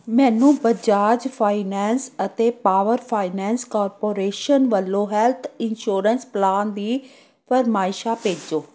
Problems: none marked